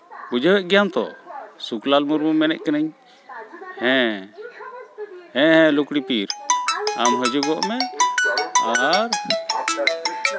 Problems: constant background noise, continuous background conversations